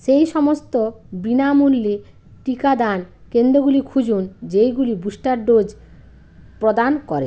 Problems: constant background noise